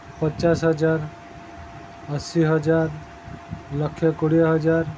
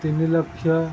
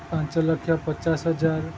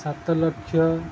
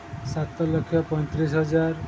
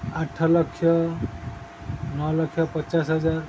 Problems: constant background noise